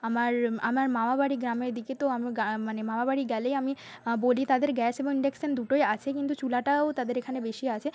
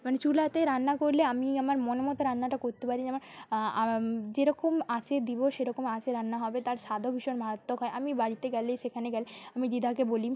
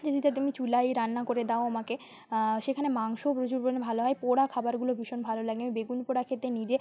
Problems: constant background noise